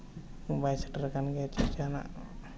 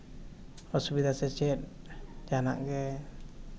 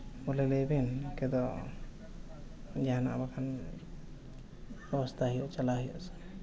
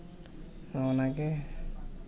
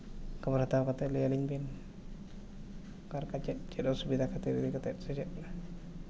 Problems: low volume